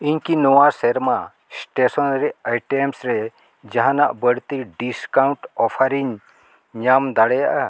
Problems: none marked